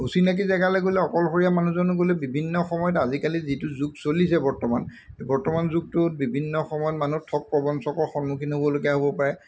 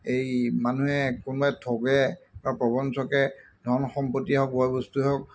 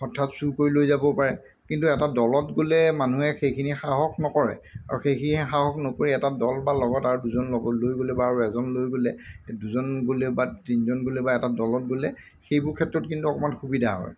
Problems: none marked